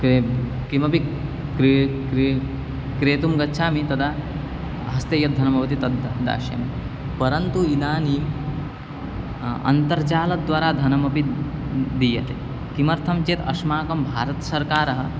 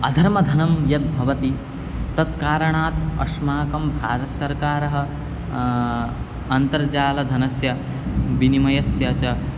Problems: constant background noise